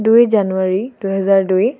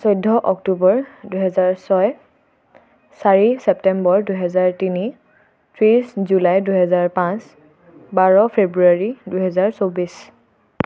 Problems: constant background noise